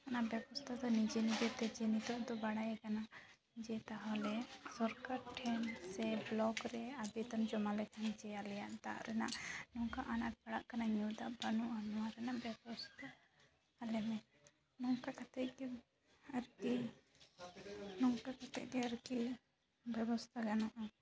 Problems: background sounds at intervals, background conversations at intervals